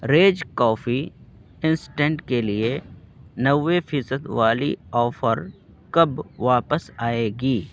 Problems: constant background noise